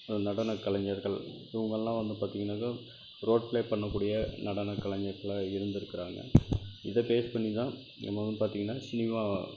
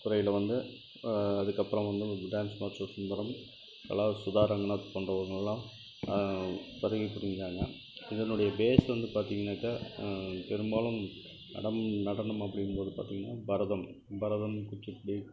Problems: constant background noise